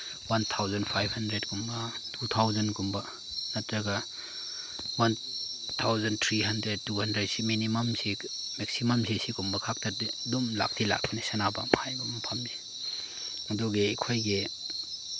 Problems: background sounds at intervals